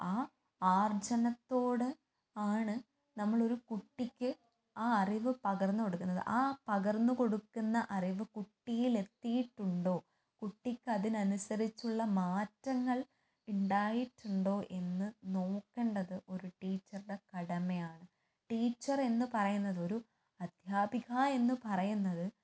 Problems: low volume